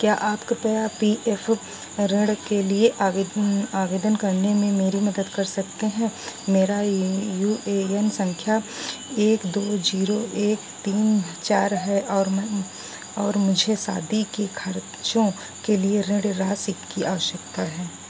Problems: none marked